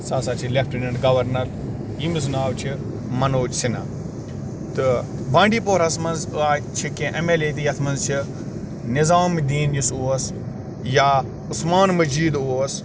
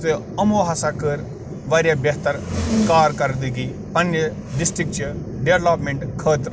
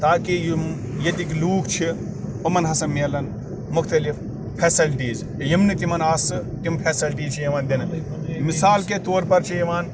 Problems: background sounds at intervals, background conversations at intervals